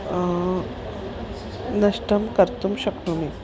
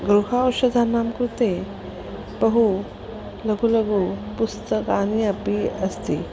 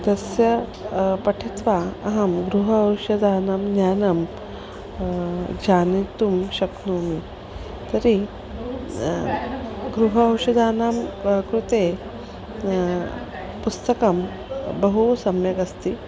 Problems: background sounds at intervals